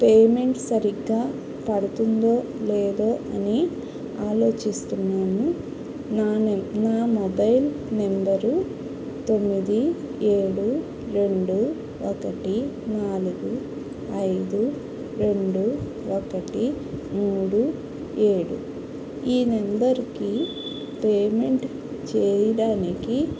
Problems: constant background noise